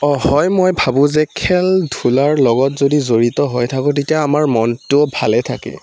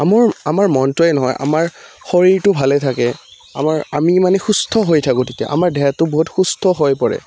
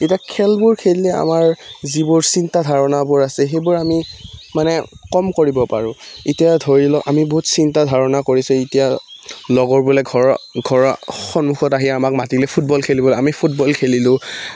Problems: background sounds at intervals